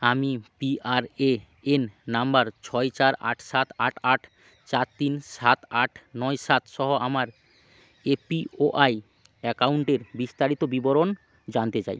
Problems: constant background noise